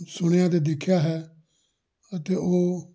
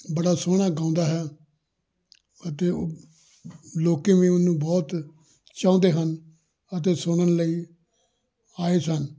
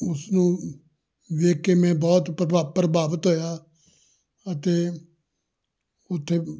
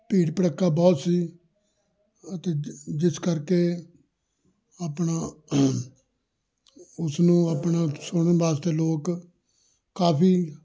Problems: none marked